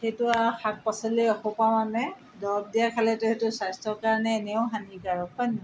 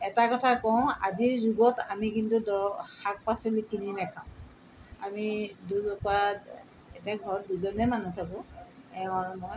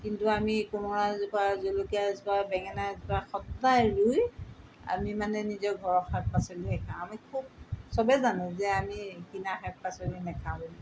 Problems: constant background noise